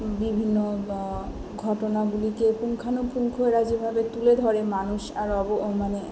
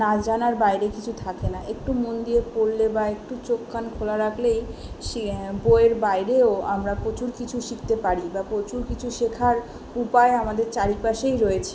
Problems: background sounds at intervals